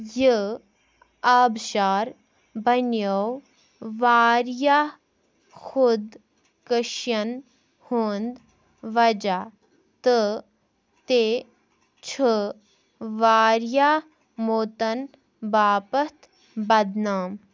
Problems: background sounds at intervals